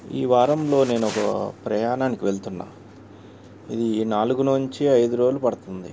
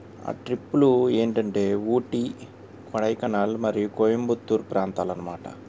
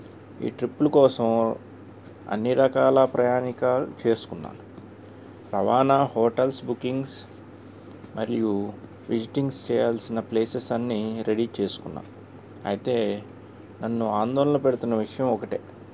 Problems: constant background noise